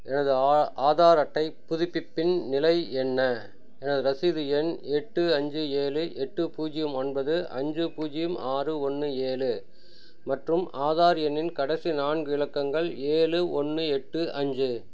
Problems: none marked